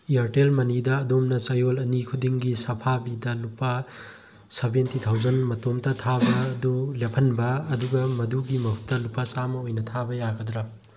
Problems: background conversations at intervals